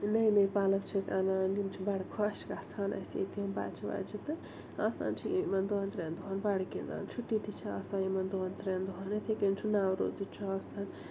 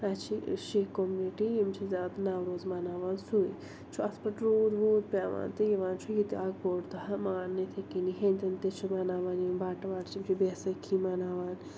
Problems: constant background noise, low volume